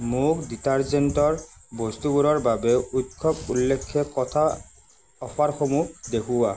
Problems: constant background noise